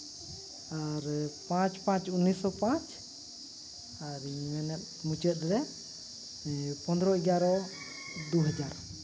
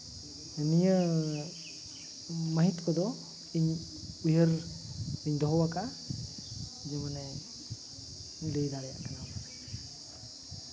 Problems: background sounds at intervals